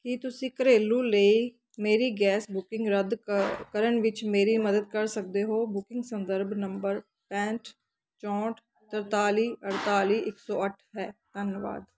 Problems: background sounds at intervals